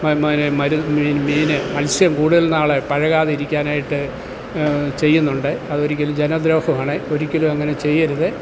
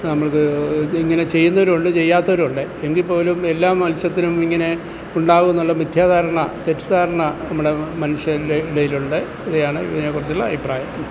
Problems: constant background noise